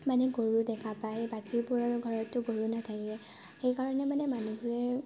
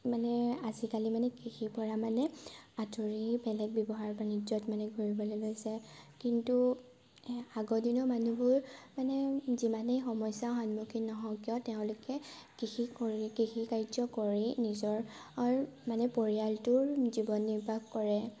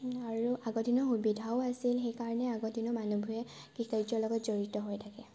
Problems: constant background noise, low volume